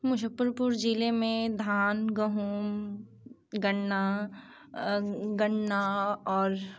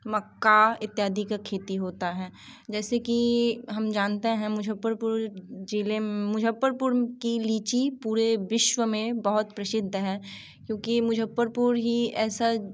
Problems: background sounds at intervals